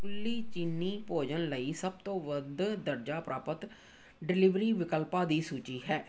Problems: background sounds at intervals